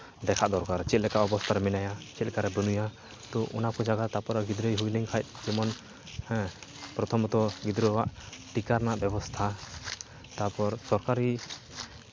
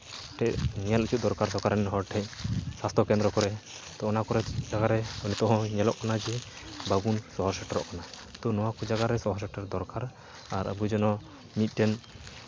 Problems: background sounds at intervals